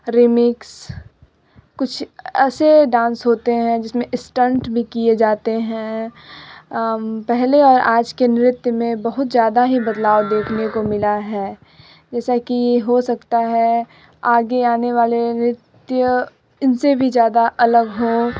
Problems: constant background noise, background conversations at intervals